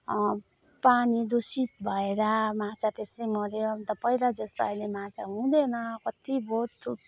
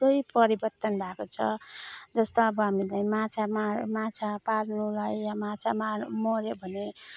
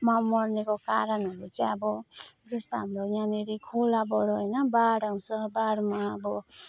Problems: none marked